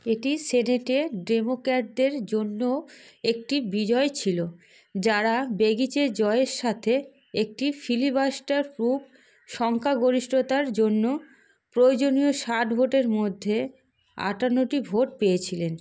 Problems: background sounds at intervals